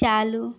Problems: none marked